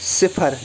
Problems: constant background noise